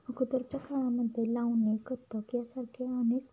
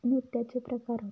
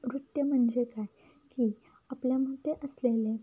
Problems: none marked